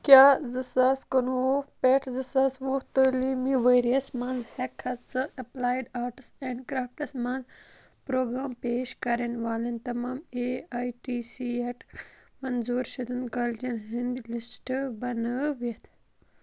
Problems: constant background noise